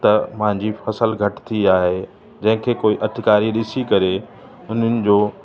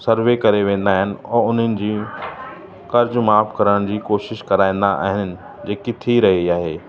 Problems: constant background noise, echo